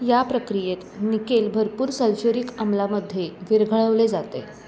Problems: constant background noise, continuous background conversations